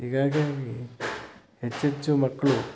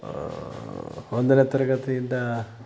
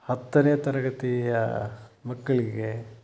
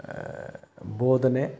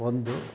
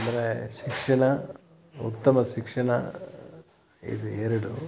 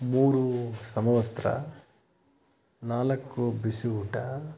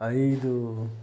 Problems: constant background noise